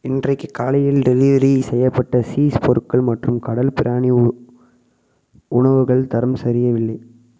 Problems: echo